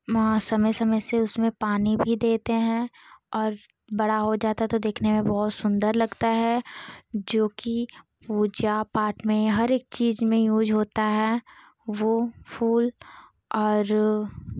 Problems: background sounds at intervals